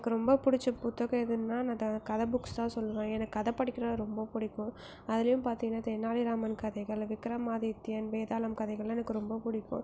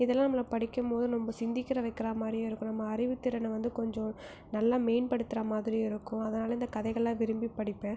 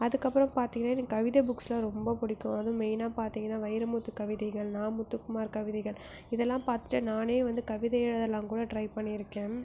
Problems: low volume